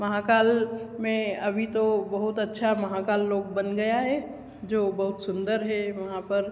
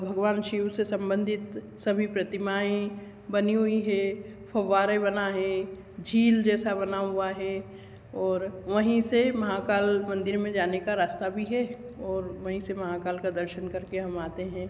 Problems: none marked